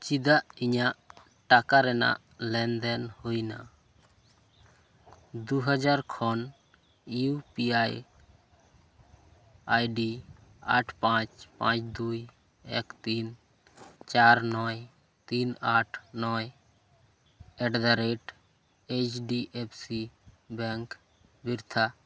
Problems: none marked